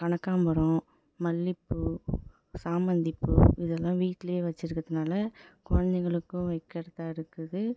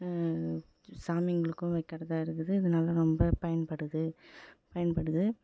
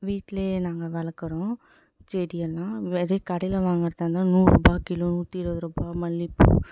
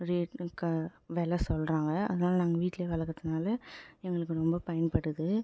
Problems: background sounds at intervals